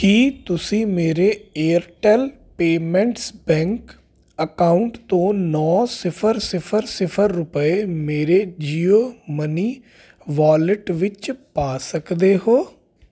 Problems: constant background noise